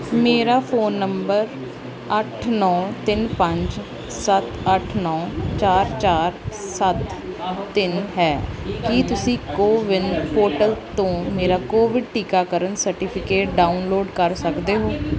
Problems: none marked